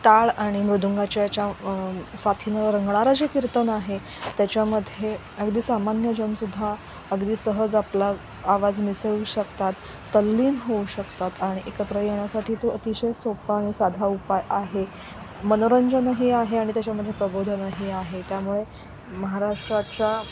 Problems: constant background noise